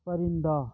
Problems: low volume